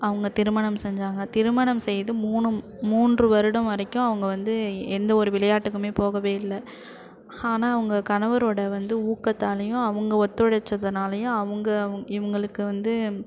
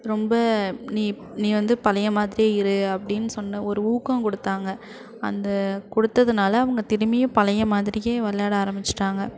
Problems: constant background noise